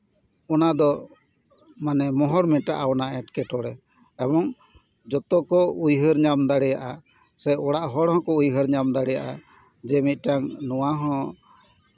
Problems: background sounds at intervals